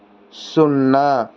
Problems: constant background noise